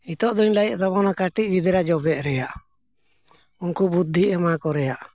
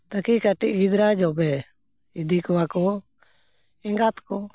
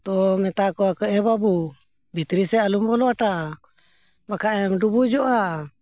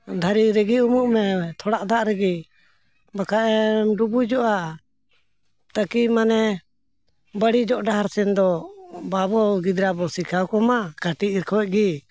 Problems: none marked